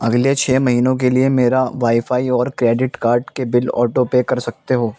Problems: constant background noise